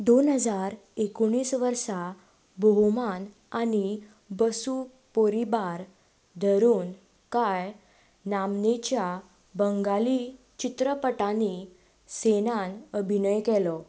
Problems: none marked